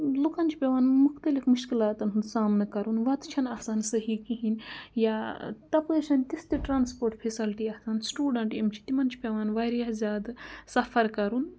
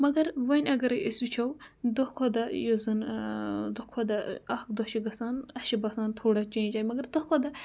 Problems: none marked